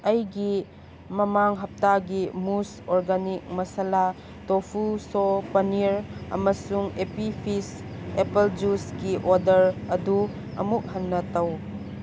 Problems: constant background noise